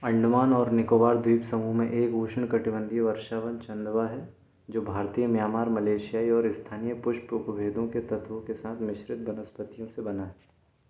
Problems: background sounds at intervals